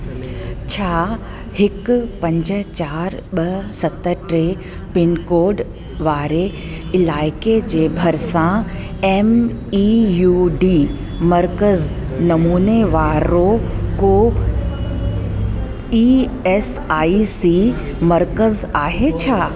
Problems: constant background noise, echo